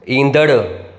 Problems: constant background noise, echo